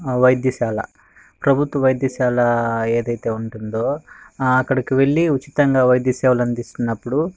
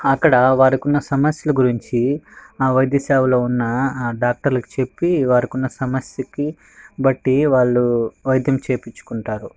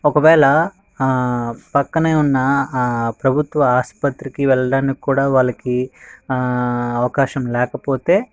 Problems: background sounds at intervals